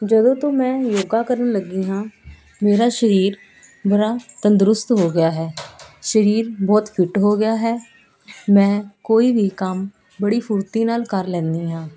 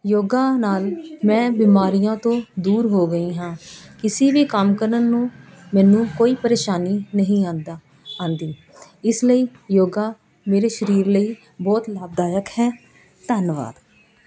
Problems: constant background noise